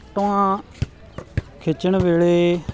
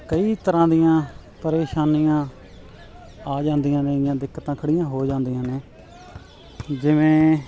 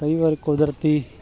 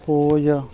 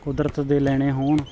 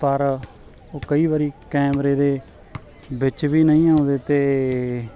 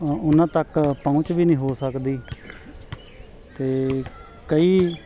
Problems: continuous background conversations